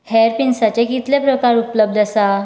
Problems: none marked